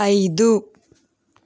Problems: background sounds at intervals